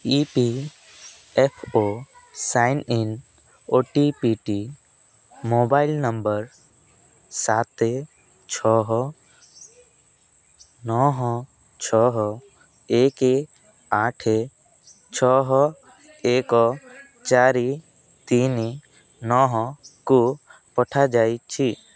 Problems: background sounds at intervals